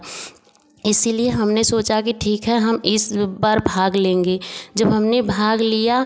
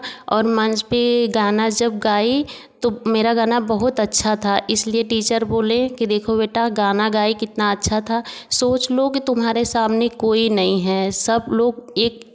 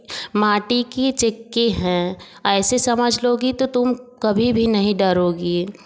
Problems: none marked